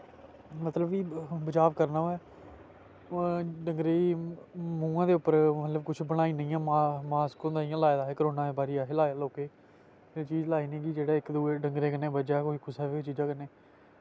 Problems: constant background noise